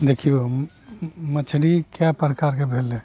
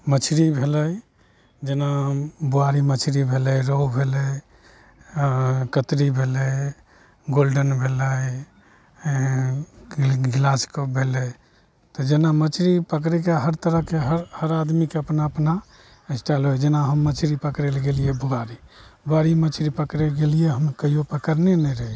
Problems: none marked